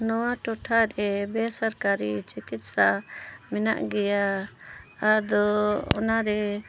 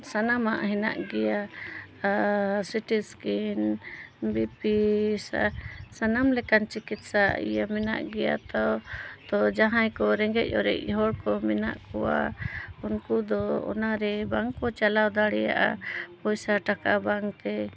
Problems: background conversations at intervals